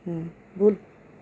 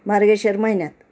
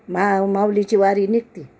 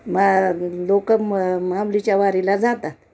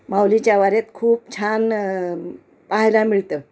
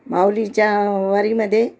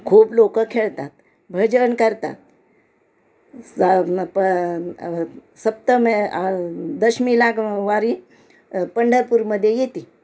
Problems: constant background noise, background conversations at intervals